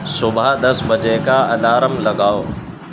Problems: constant background noise